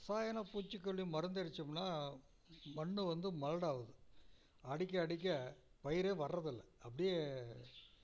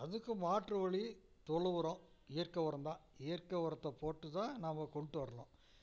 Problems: low volume